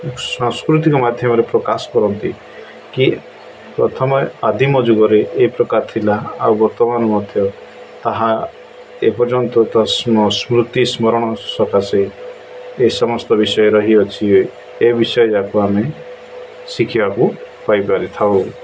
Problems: none marked